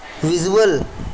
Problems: constant background noise